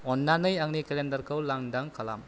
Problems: none marked